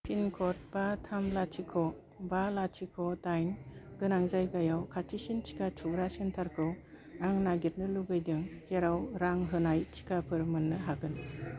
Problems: low volume